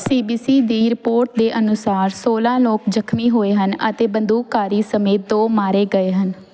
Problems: none marked